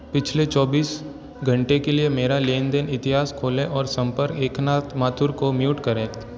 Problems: constant background noise